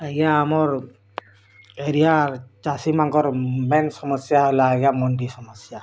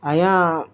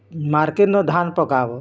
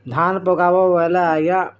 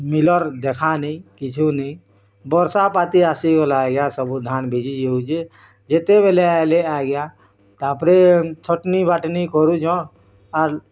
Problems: none marked